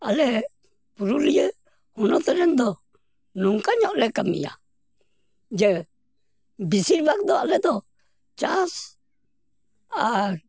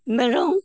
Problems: background sounds at intervals